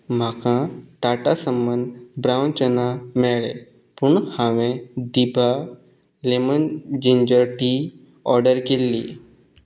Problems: background sounds at intervals